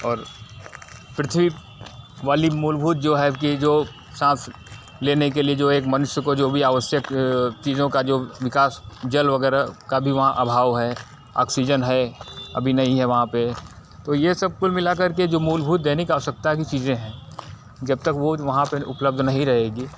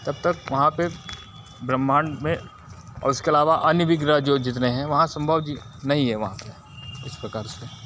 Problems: constant background noise